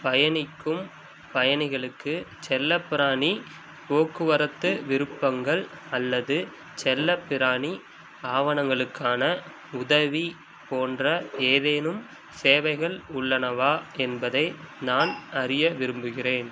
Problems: constant background noise